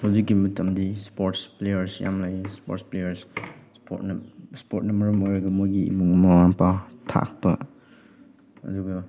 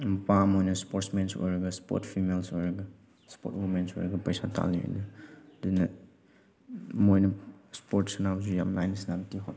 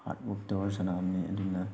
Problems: none marked